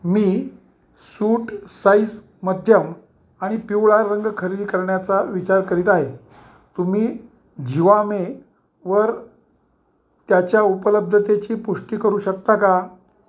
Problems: none marked